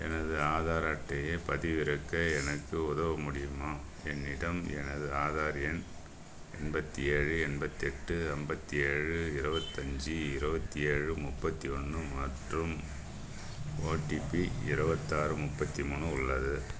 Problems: constant background noise